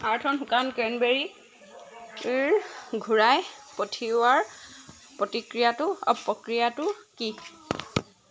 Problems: none marked